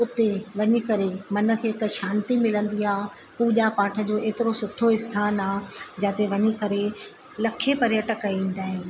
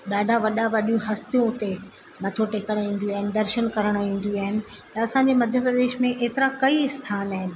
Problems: constant background noise